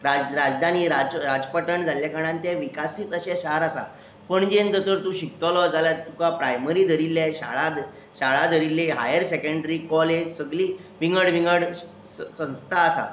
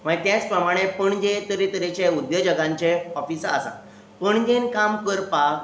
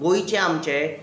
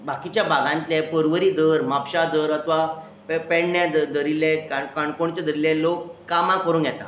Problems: constant background noise